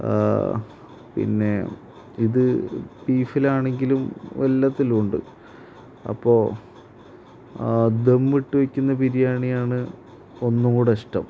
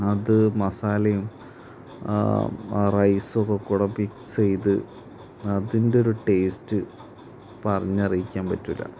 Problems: constant background noise, low volume